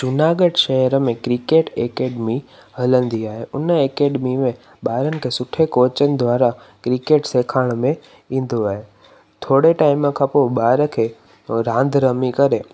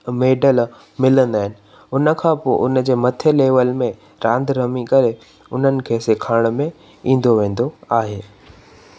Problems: constant background noise